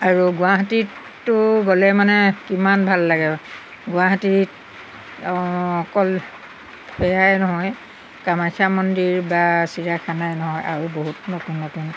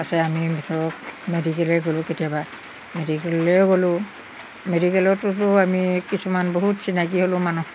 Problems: background sounds at intervals